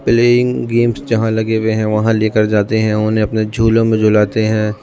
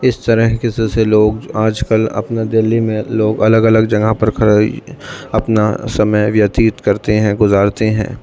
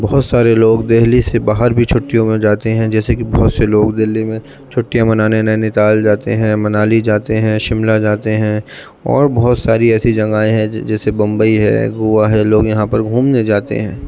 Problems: constant background noise, background conversations at intervals, low volume